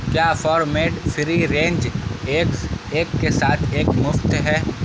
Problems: constant background noise